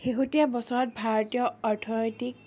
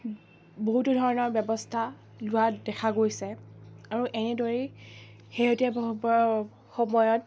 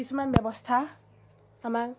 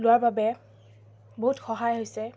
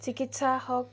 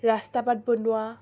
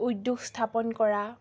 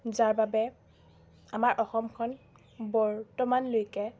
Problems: constant background noise, background conversations at intervals